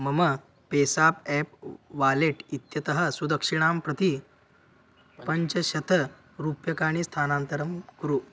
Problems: constant background noise